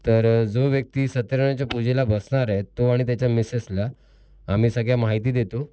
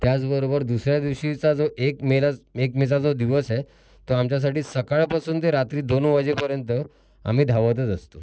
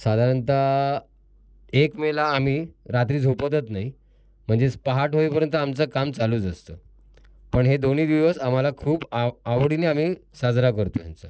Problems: background sounds at intervals